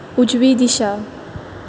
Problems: none marked